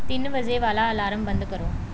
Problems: none marked